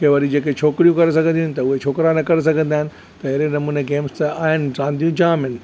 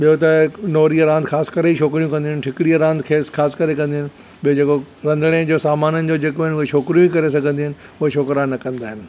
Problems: none marked